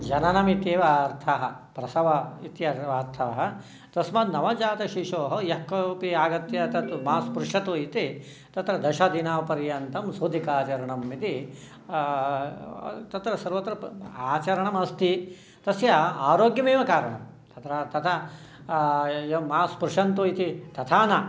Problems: none marked